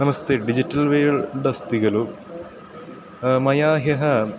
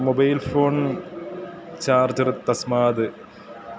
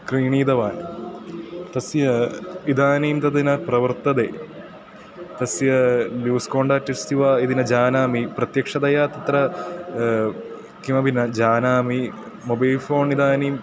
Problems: constant background noise